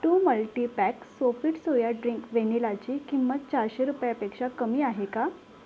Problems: constant background noise